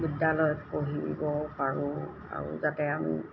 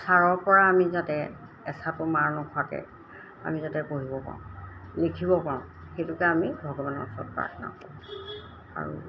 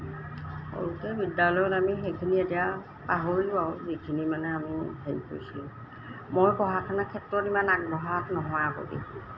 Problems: constant background noise